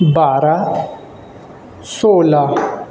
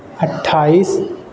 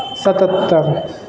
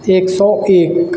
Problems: constant background noise